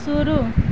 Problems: constant background noise